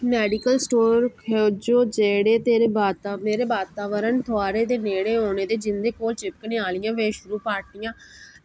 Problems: background sounds at intervals